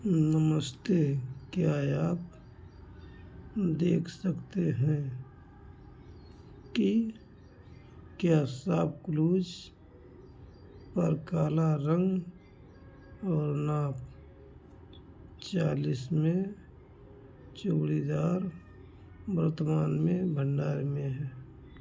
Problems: constant background noise